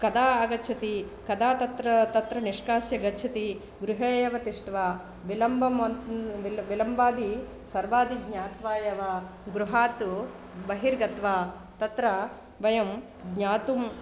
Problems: constant background noise